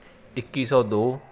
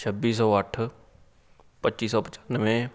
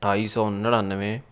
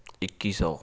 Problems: none marked